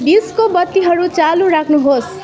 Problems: continuous background conversations